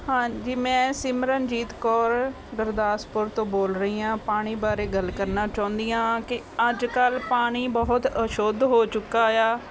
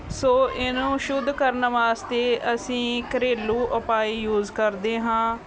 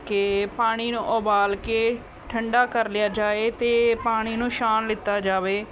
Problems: constant background noise, background conversations at intervals